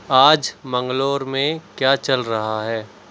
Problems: background sounds at intervals